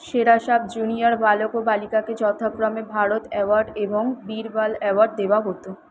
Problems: constant background noise